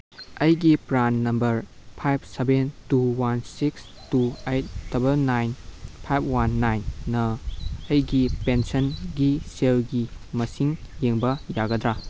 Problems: background sounds at intervals